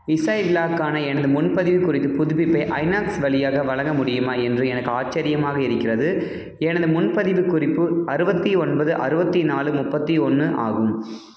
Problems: low volume